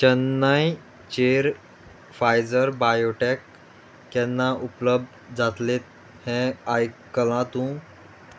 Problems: none marked